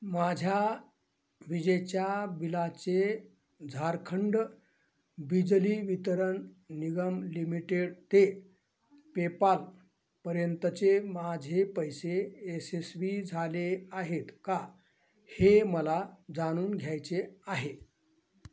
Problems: none marked